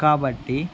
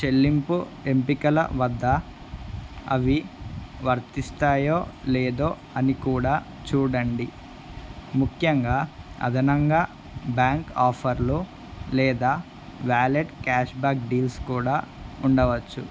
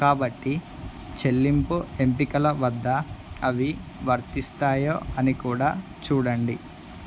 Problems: constant background noise